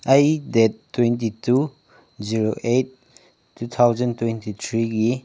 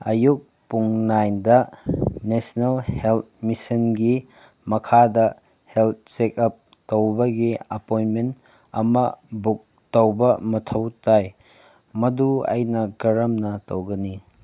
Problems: background sounds at intervals